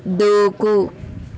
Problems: constant background noise